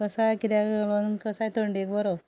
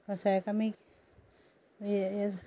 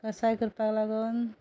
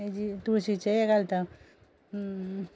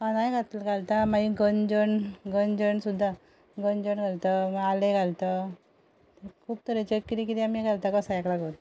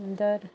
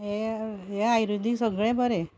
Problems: none marked